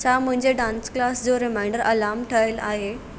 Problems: none marked